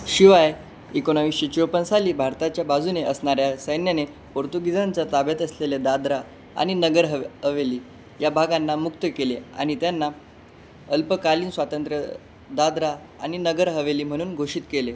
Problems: constant background noise